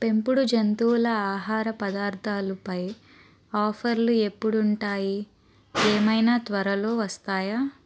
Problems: constant background noise